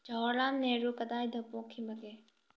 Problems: low volume